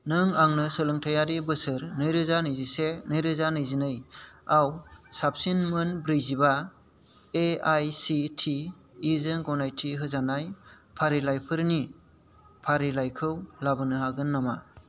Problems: constant background noise